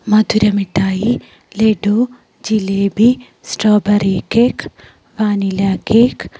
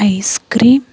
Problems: none marked